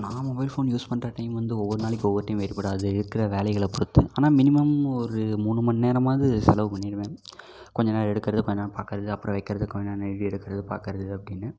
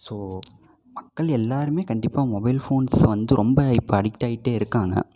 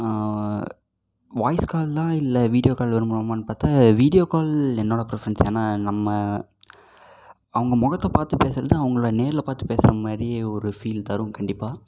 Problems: constant background noise